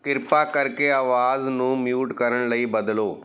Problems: background sounds at intervals